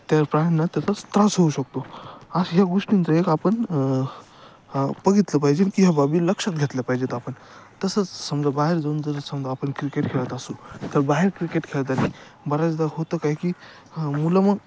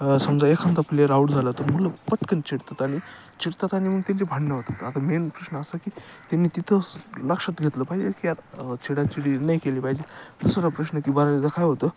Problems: none marked